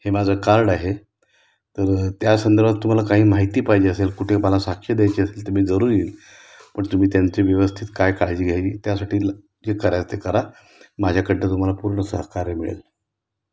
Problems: background sounds at intervals